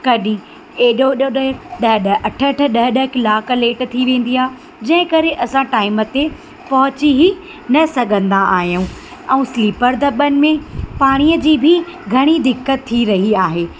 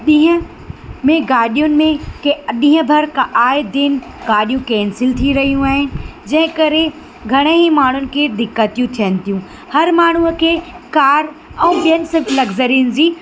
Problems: constant background noise, echo